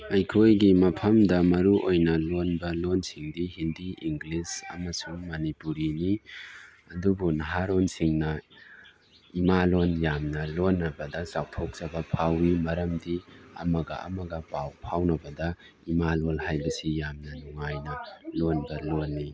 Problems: background sounds at intervals, background conversations at intervals